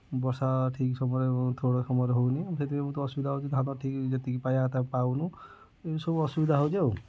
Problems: low volume